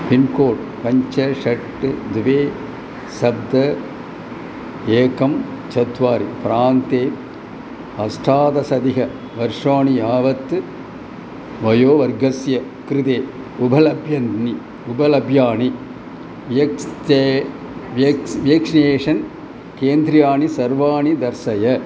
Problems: constant background noise